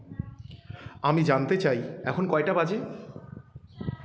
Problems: continuous background conversations